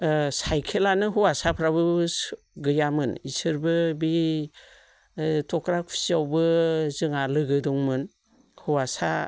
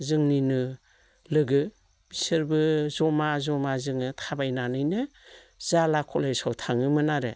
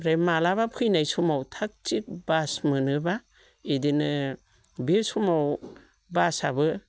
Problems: none marked